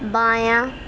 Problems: constant background noise